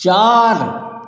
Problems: constant background noise